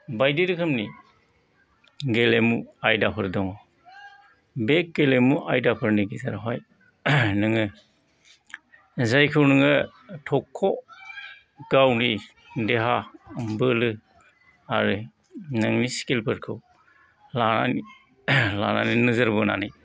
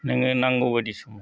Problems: background sounds at intervals, background conversations at intervals